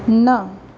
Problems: none marked